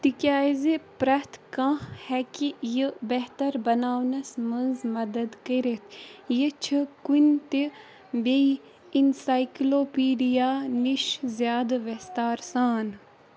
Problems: background sounds at intervals